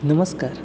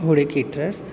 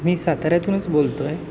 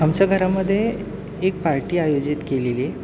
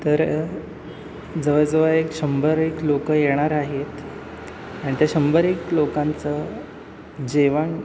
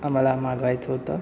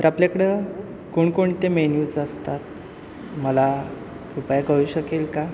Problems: constant background noise, background conversations at intervals